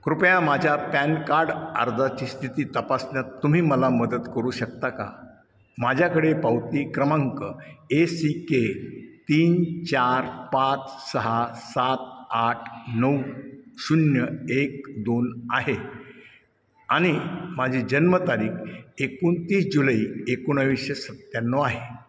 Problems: none marked